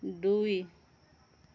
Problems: constant background noise